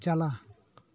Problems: none marked